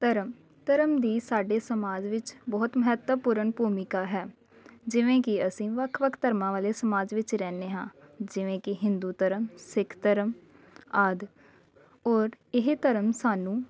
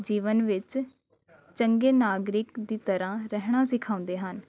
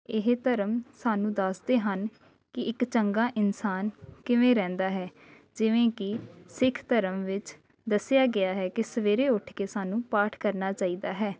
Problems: none marked